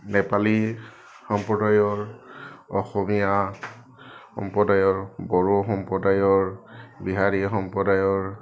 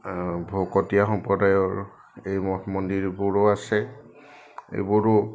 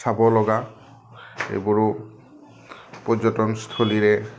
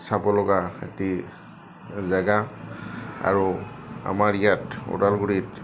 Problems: none marked